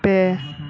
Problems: continuous background conversations